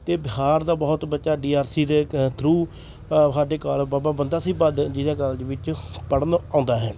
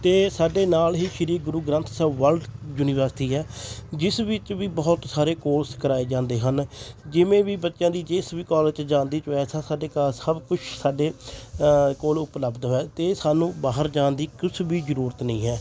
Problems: constant background noise, continuous background conversations